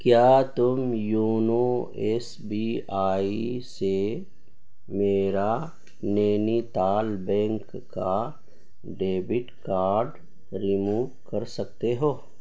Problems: constant background noise